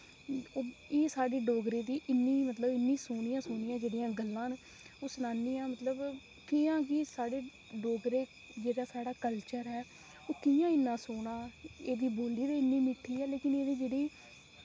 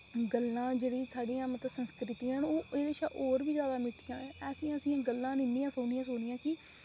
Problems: constant background noise, low volume